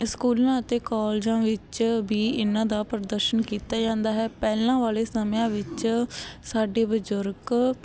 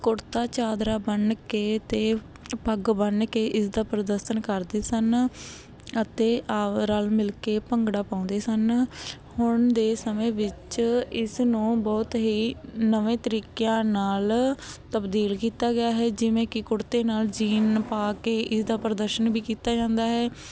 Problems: constant background noise